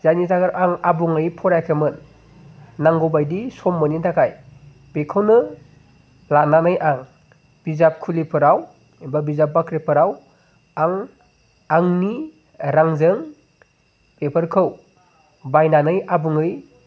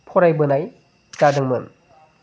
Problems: constant background noise